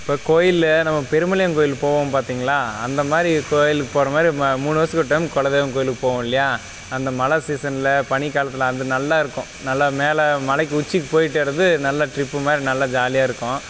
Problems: background sounds at intervals